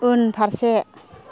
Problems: background conversations at intervals